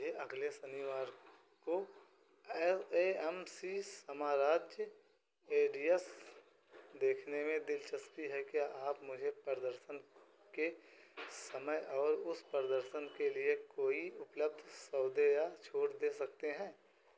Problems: background sounds at intervals, echo